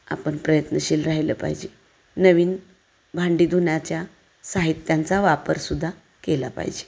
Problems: constant background noise, echo